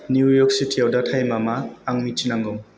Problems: constant background noise